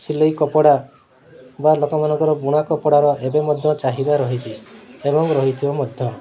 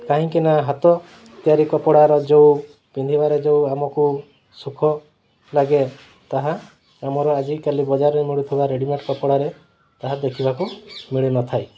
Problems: constant background noise, continuous background conversations